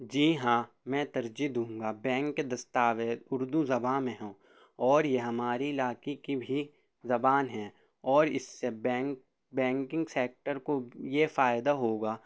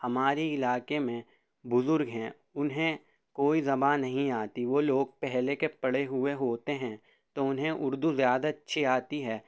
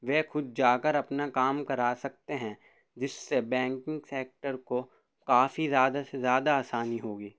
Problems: none marked